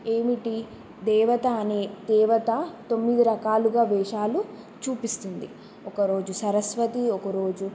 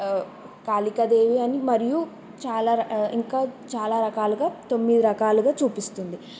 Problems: none marked